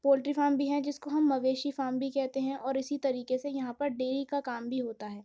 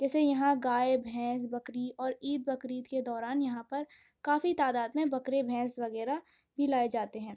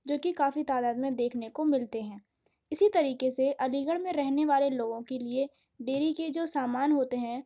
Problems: none marked